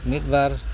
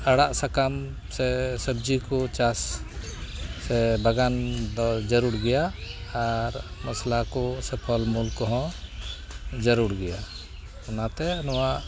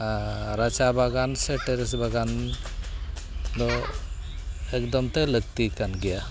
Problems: none marked